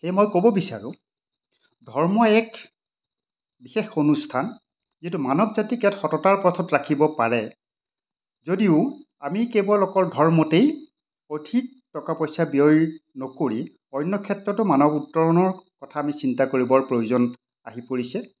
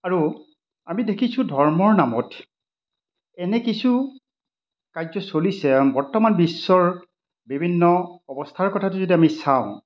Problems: none marked